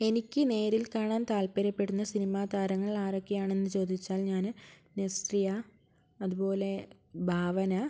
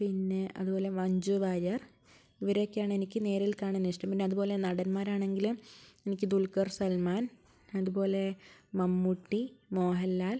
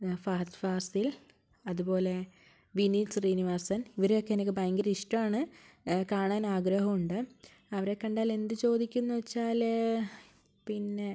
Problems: none marked